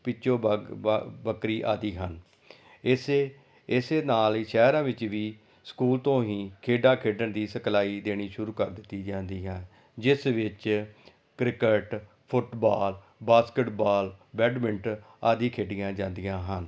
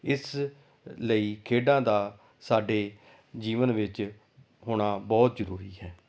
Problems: none marked